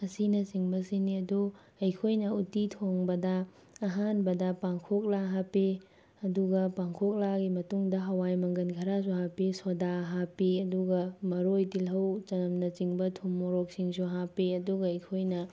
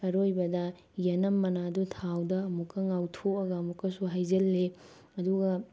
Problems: none marked